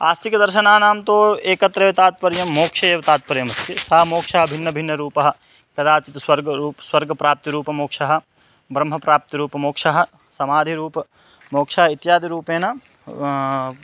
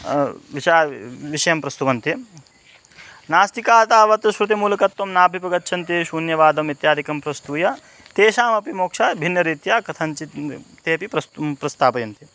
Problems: constant background noise